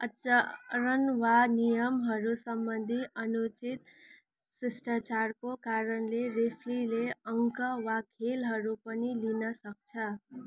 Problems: continuous background conversations